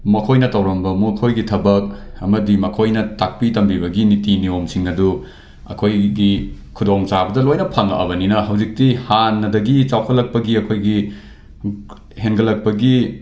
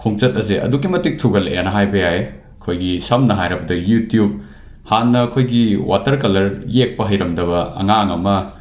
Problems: none marked